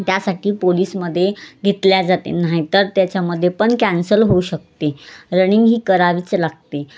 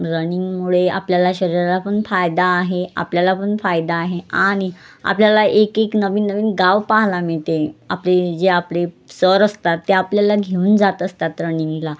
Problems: constant background noise, background conversations at intervals